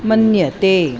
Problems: constant background noise